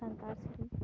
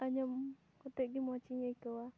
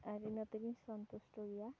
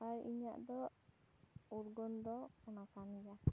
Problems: background sounds at intervals